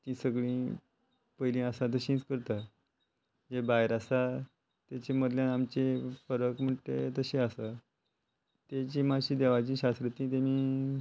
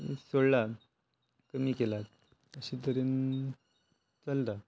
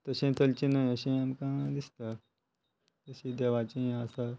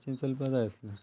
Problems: constant background noise